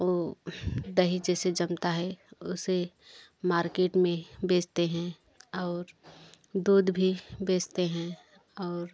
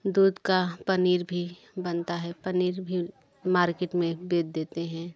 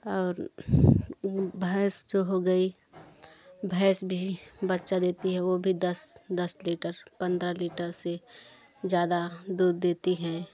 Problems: continuous background conversations